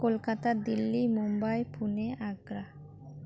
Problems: constant background noise